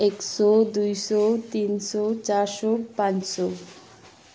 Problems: background sounds at intervals